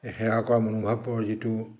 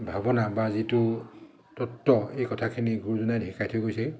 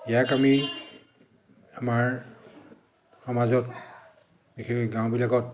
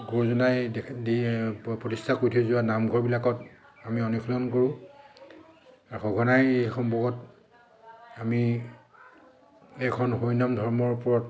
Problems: constant background noise, echo